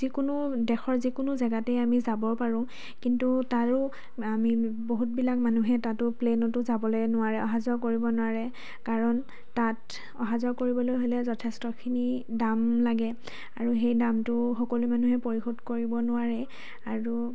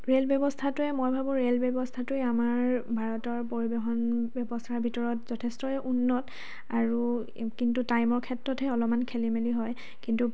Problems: none marked